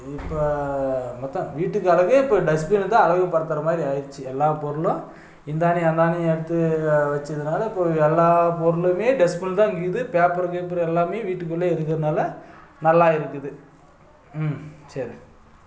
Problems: none marked